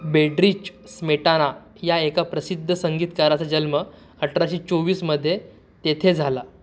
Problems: none marked